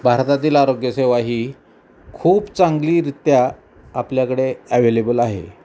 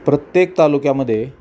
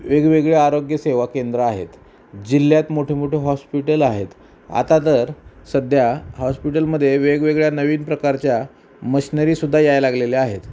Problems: none marked